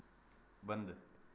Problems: constant background noise